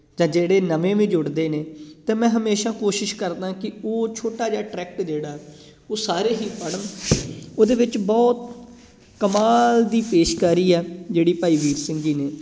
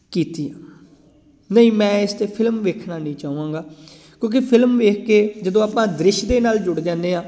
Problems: background sounds at intervals